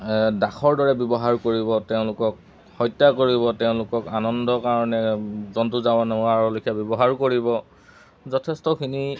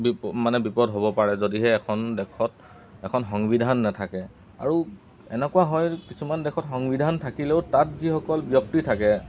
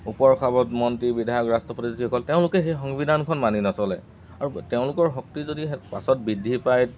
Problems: constant background noise